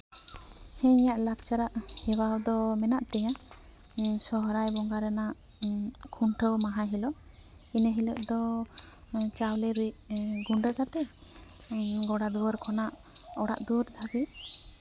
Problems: constant background noise